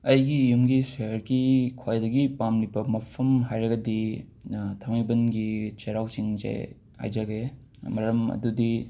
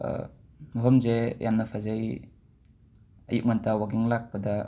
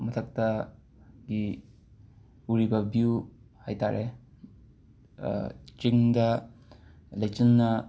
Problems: background sounds at intervals